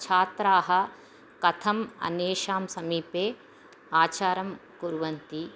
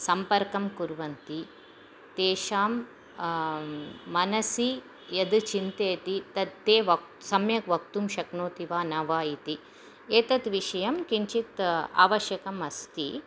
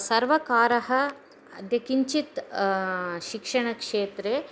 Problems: none marked